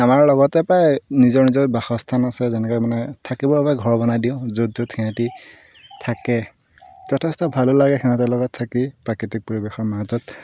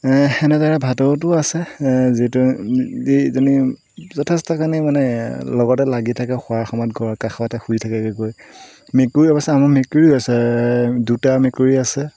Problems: constant background noise